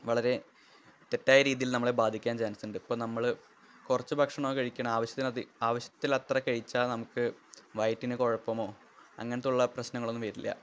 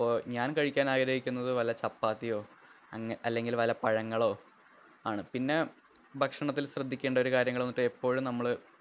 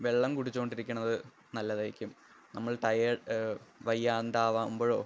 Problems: low volume